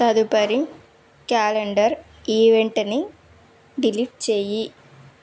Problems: background sounds at intervals